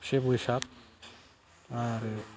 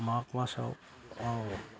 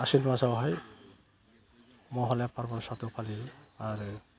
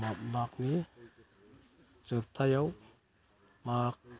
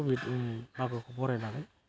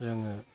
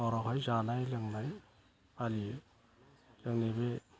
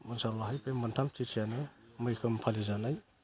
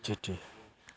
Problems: constant background noise